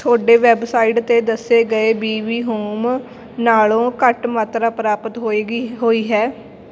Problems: none marked